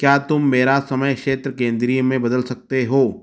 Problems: none marked